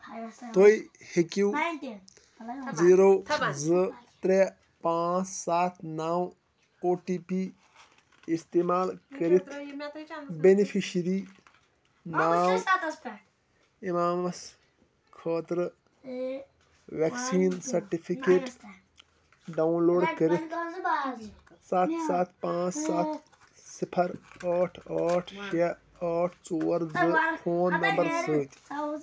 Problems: constant background noise, continuous background conversations